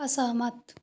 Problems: none marked